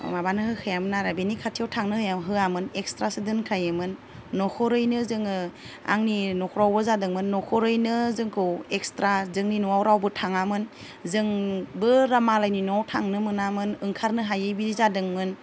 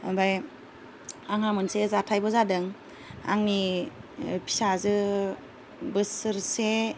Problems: none marked